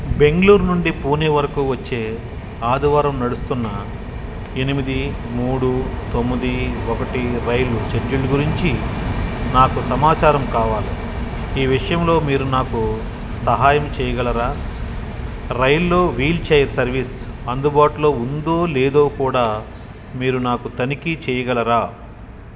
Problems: background sounds at intervals